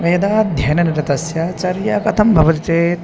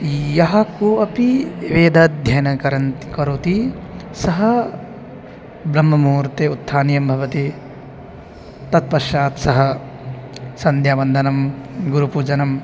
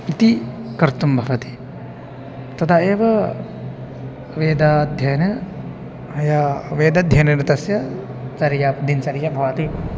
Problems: constant background noise